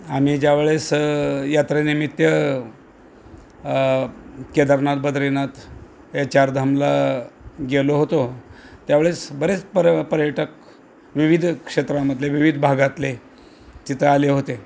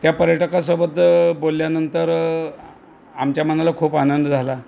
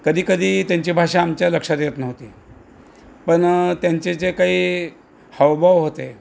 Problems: none marked